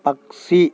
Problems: constant background noise